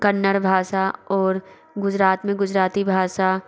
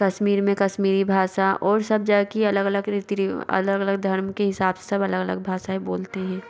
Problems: background sounds at intervals